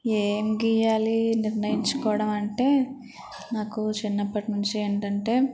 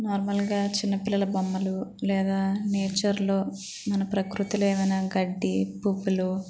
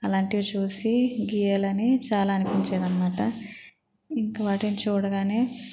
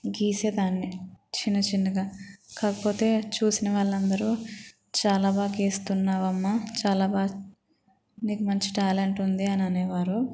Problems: constant background noise, background conversations at intervals